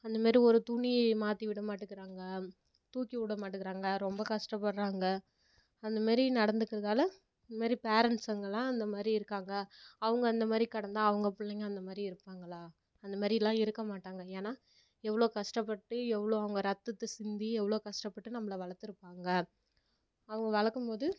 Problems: low volume